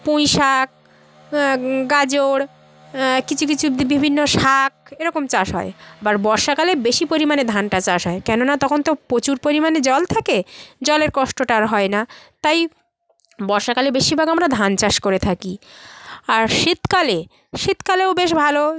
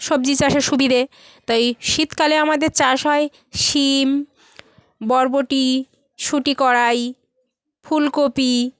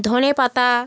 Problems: constant background noise, background conversations at intervals